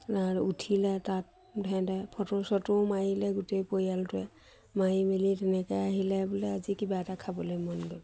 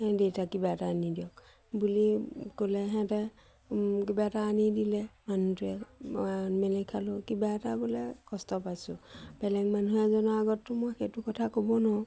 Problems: none marked